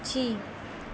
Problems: constant background noise